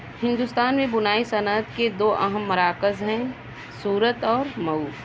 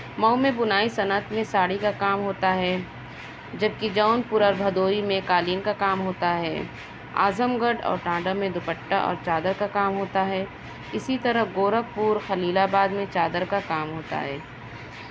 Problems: constant background noise